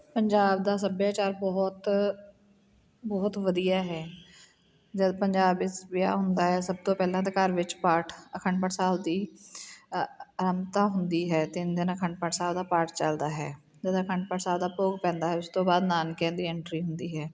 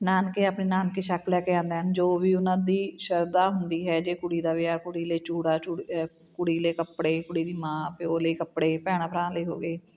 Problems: background sounds at intervals, background conversations at intervals